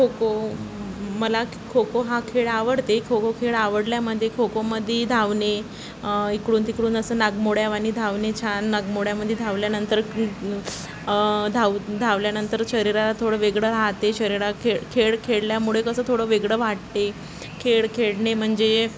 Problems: constant background noise, background conversations at intervals